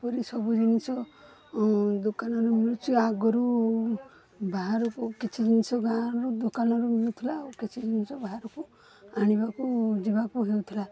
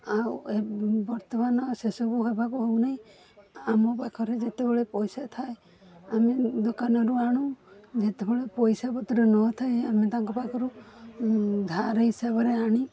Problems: constant background noise, continuous background conversations